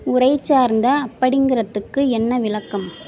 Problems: background sounds at intervals